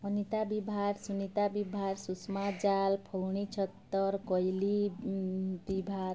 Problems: none marked